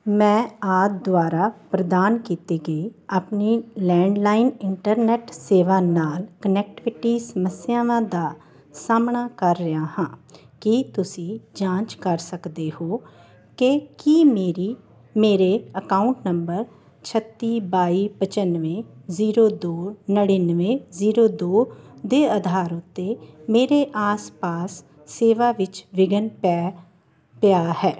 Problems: none marked